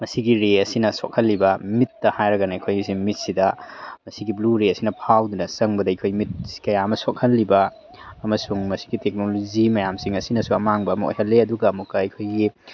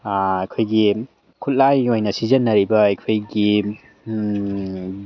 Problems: none marked